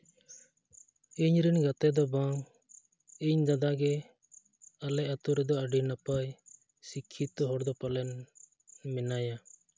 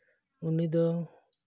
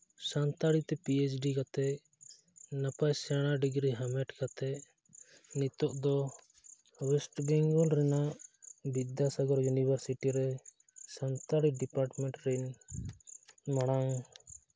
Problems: none marked